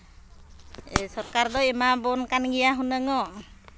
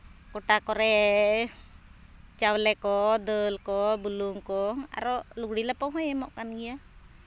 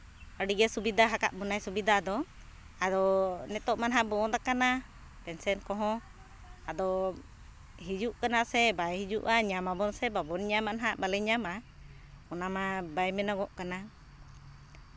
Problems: none marked